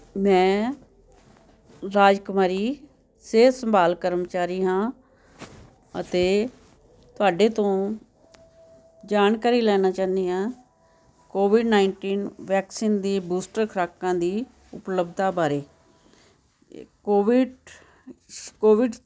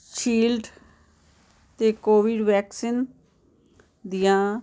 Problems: background conversations at intervals